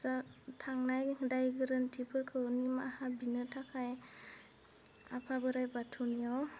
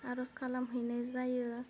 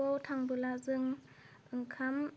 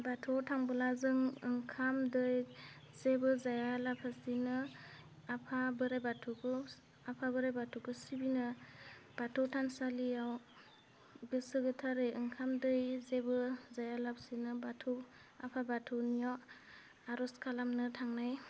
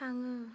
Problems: low volume